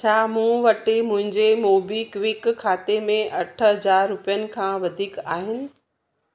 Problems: none marked